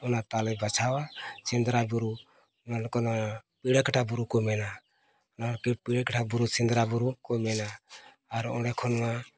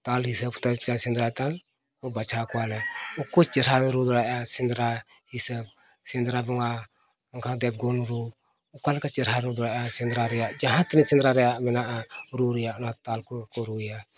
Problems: constant background noise